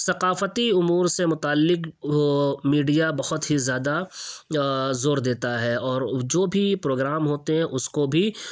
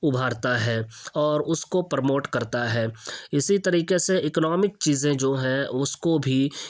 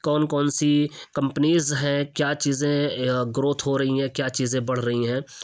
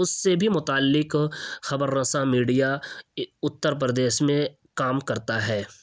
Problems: none marked